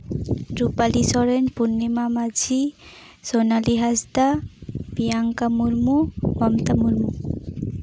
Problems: constant background noise